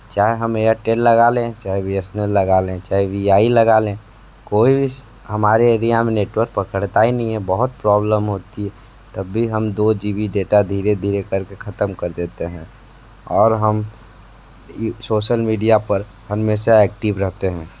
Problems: background sounds at intervals